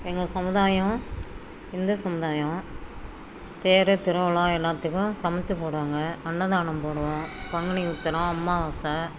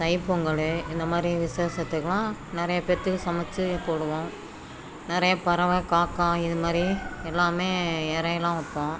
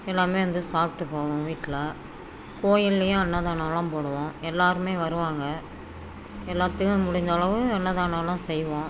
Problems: background sounds at intervals, background conversations at intervals